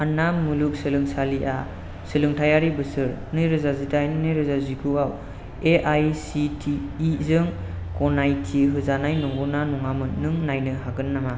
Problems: constant background noise